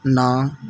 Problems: background sounds at intervals